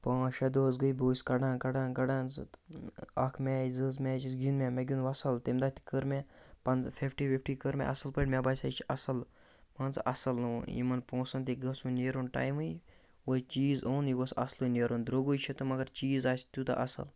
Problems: none marked